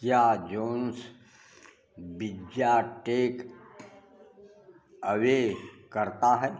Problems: background conversations at intervals